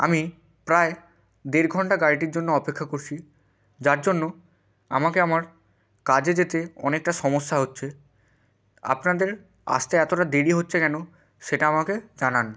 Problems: constant background noise